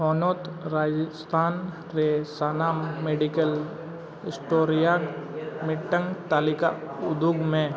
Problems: background sounds at intervals